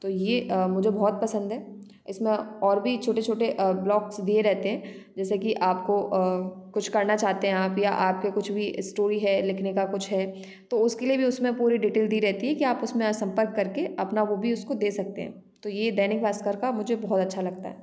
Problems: constant background noise